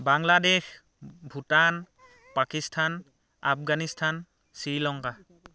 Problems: none marked